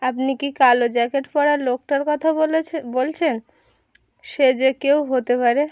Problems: constant background noise